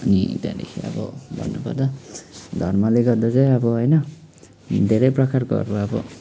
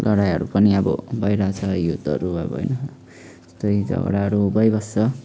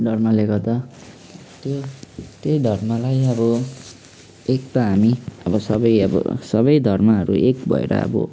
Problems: none marked